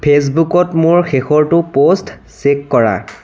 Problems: background sounds at intervals